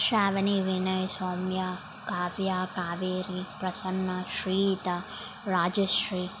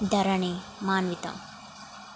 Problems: constant background noise